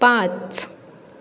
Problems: constant background noise